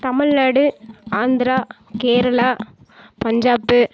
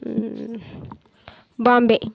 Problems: none marked